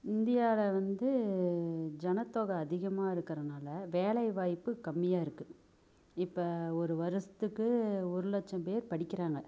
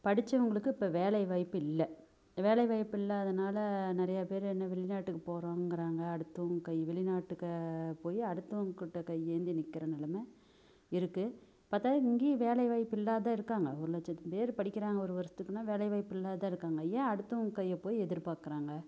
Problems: none marked